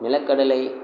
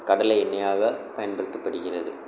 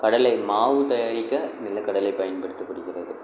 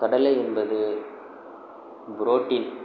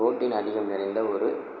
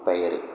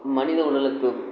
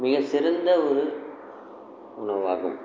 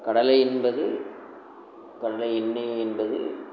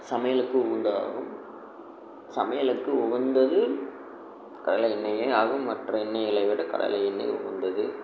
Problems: none marked